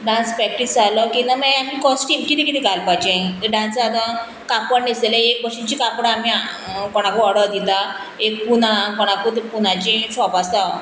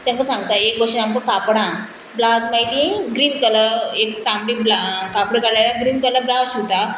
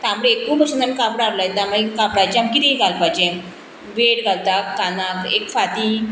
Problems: constant background noise